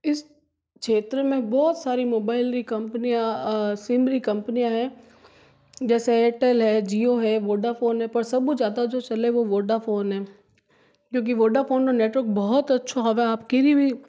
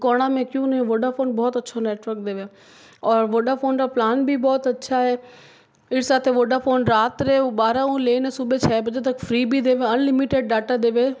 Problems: none marked